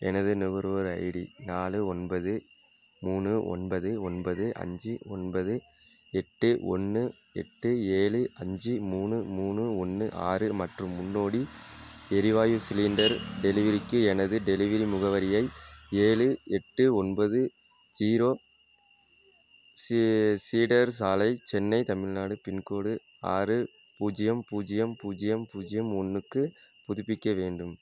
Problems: low volume